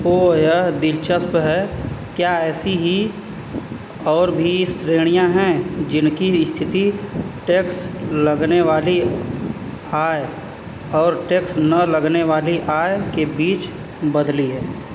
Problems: constant background noise